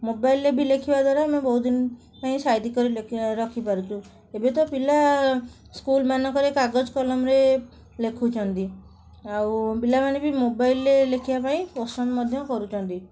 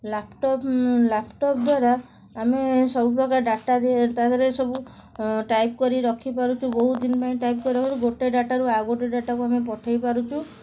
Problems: background sounds at intervals, background conversations at intervals